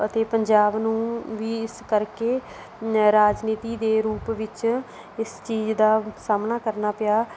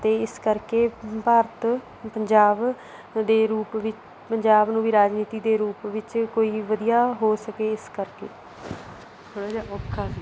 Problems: background sounds at intervals